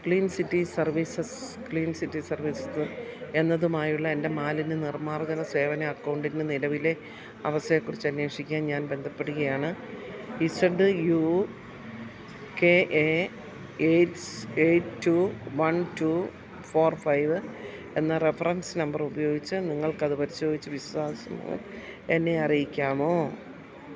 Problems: constant background noise, low volume